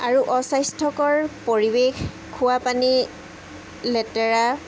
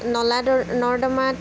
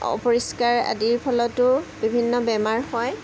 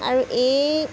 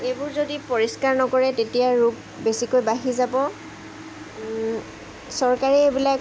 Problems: background sounds at intervals